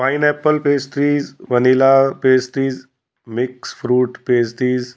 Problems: background sounds at intervals